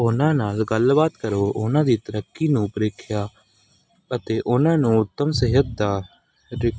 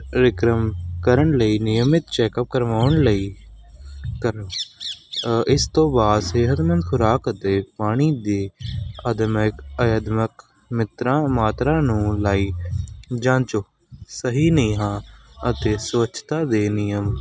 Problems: background sounds at intervals